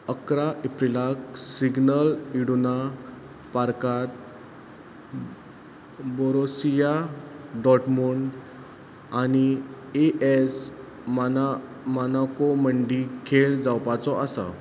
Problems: constant background noise